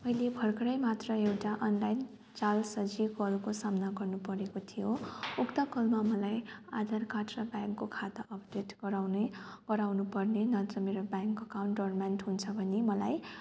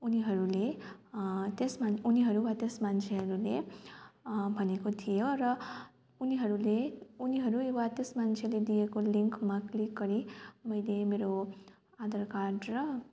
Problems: constant background noise